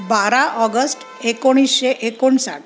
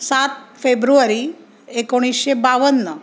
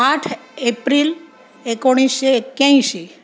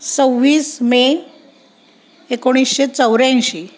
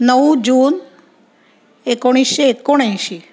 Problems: none marked